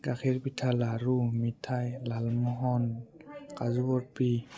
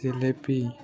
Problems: background conversations at intervals